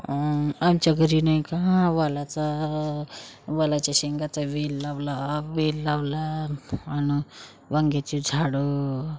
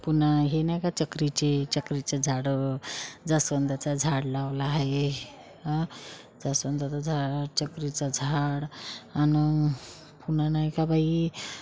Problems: none marked